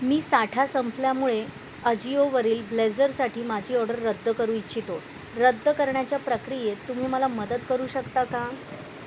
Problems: none marked